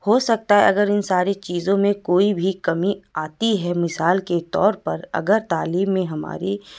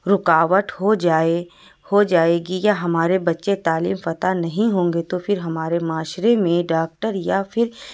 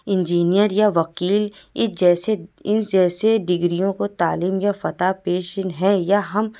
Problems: none marked